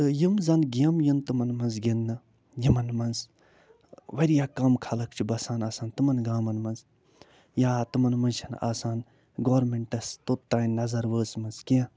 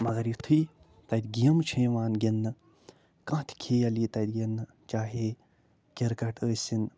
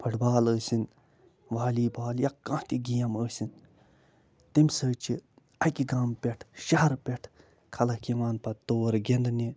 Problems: none marked